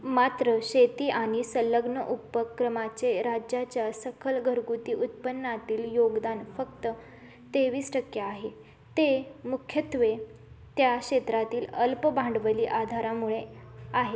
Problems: constant background noise, continuous background conversations